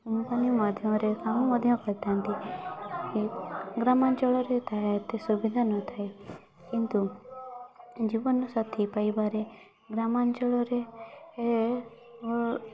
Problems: background sounds at intervals